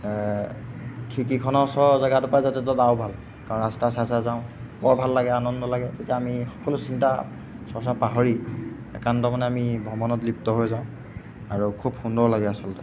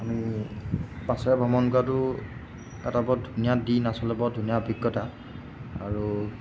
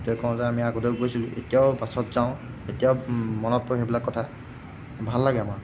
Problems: none marked